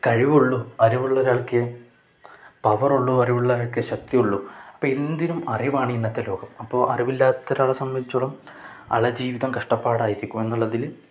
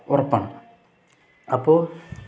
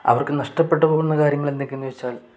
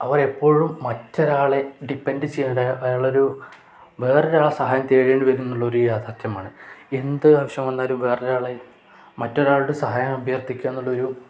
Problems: none marked